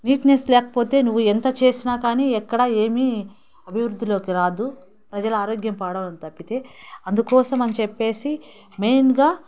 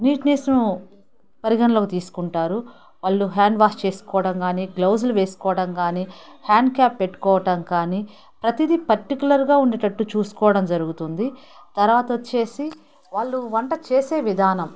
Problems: background sounds at intervals, background conversations at intervals